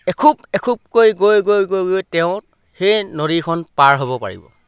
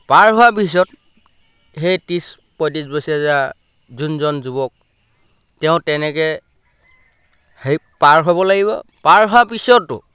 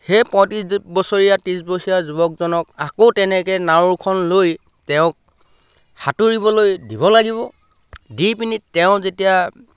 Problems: none marked